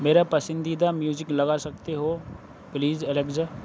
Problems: none marked